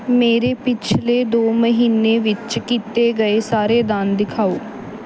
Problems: background sounds at intervals